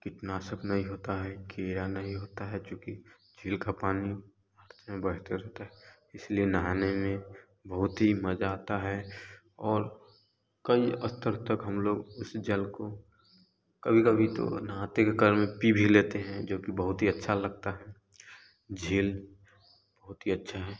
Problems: constant background noise